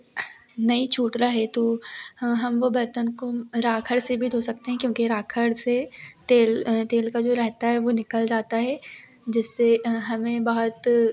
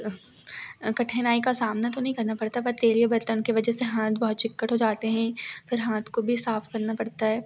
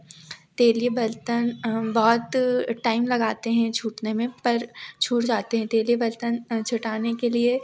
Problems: background sounds at intervals